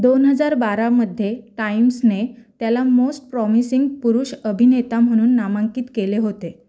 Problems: none marked